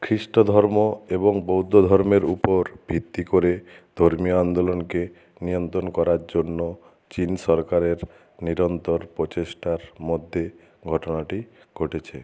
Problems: none marked